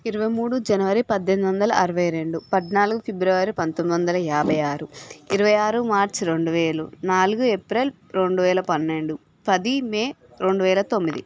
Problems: background sounds at intervals, background conversations at intervals